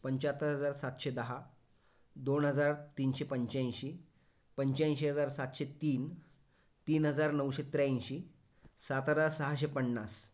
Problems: none marked